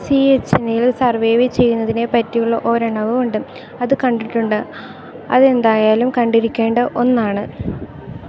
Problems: none marked